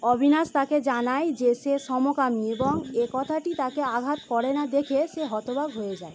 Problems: constant background noise